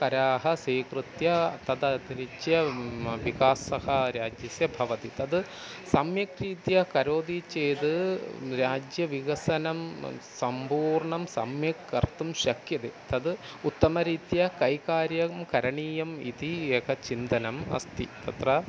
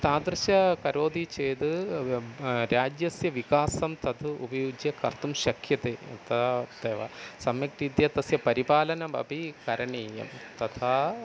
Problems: constant background noise